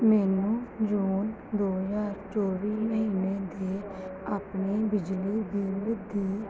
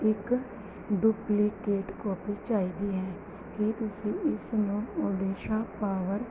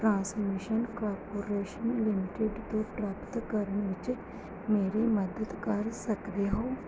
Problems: background sounds at intervals